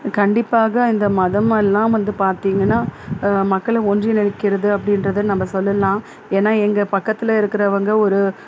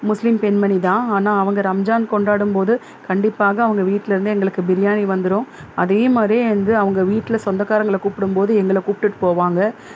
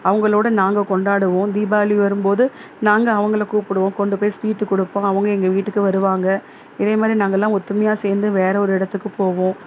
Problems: constant background noise